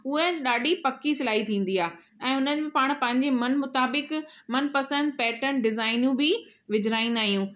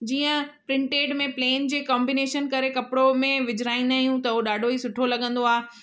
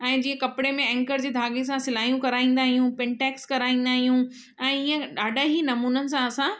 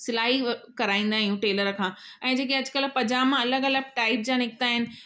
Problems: none marked